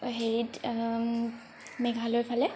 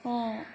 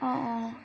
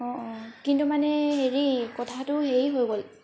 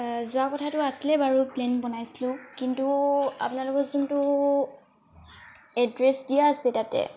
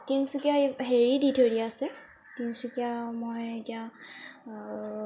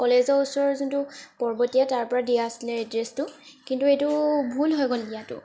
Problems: constant background noise